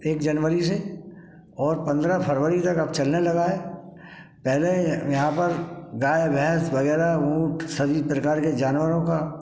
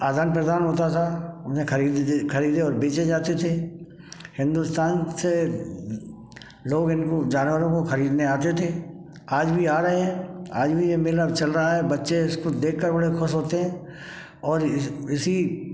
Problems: background sounds at intervals, background conversations at intervals